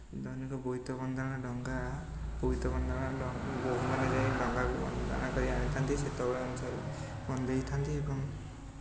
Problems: constant background noise